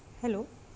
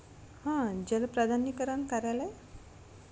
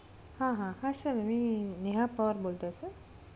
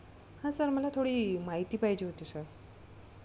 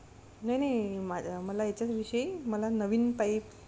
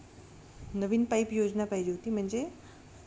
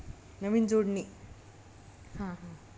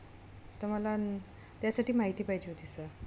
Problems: none marked